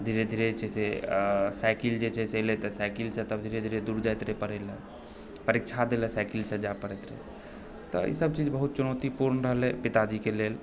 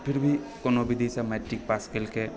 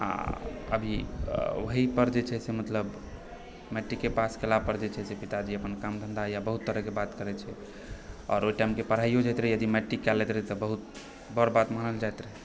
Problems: background sounds at intervals